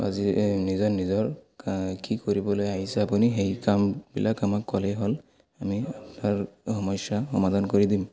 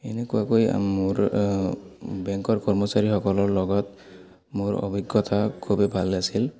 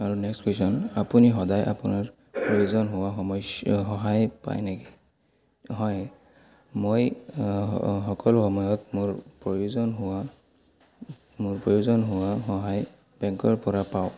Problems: constant background noise, continuous background conversations